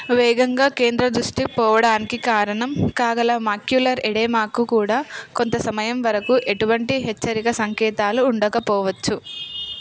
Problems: constant background noise